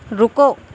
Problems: none marked